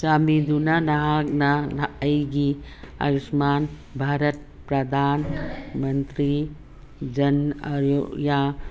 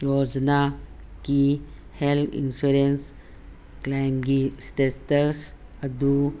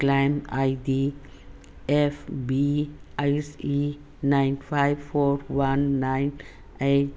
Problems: constant background noise